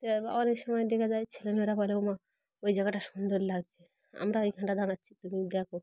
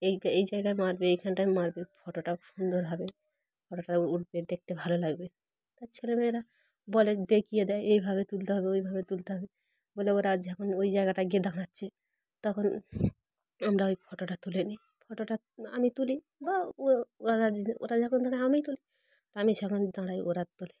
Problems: constant background noise, background conversations at intervals